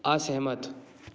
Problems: constant background noise